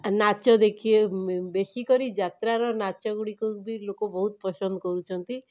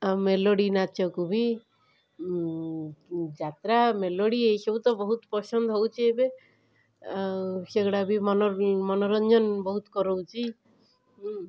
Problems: background sounds at intervals, background conversations at intervals